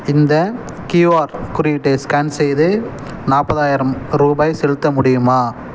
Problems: background sounds at intervals